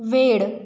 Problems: none marked